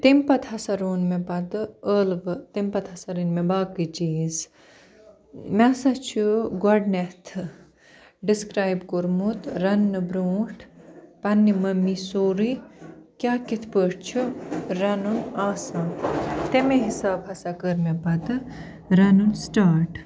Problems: none marked